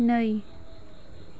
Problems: none marked